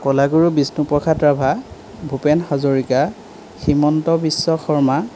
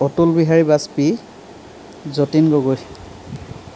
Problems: background sounds at intervals